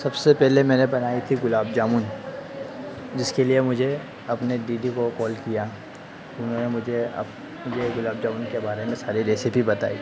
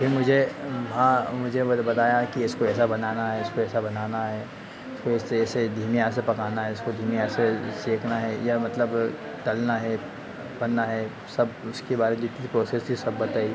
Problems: constant background noise